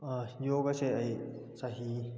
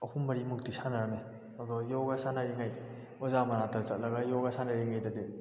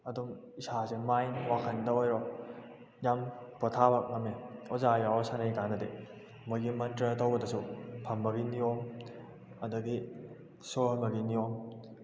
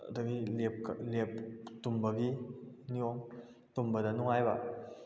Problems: echo